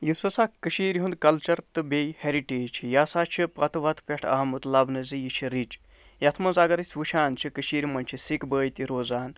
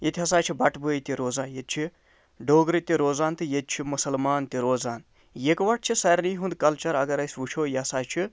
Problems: none marked